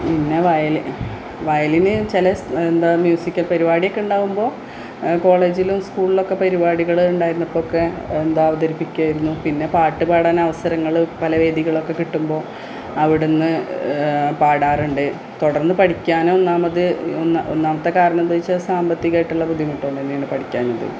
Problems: background sounds at intervals